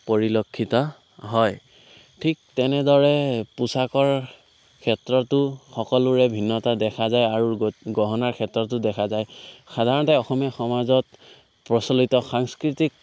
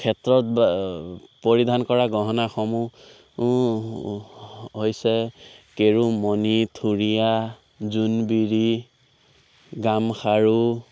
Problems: constant background noise, background conversations at intervals